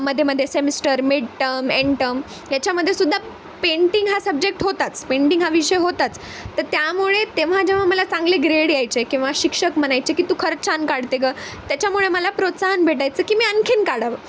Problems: constant background noise